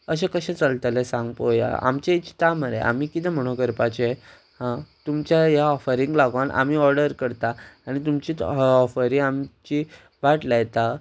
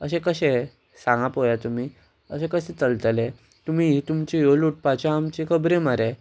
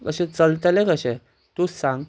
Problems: constant background noise